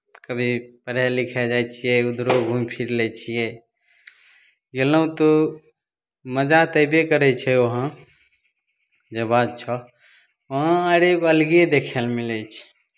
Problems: none marked